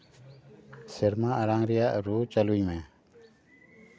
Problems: background sounds at intervals